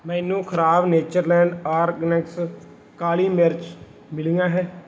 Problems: background sounds at intervals